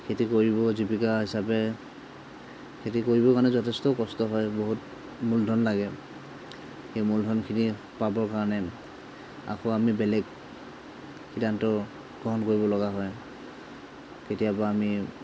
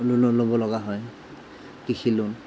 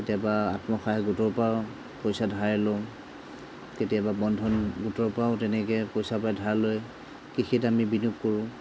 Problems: background sounds at intervals